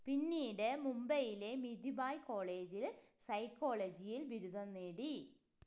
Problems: low volume